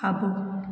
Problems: echo